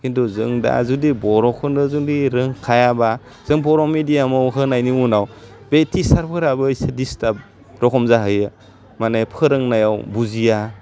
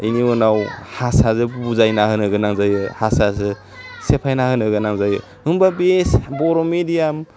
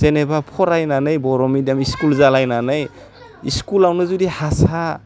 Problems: none marked